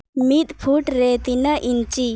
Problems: constant background noise